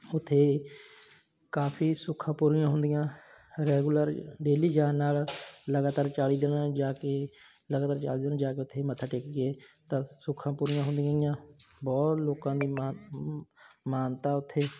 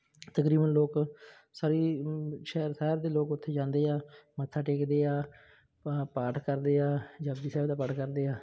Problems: background sounds at intervals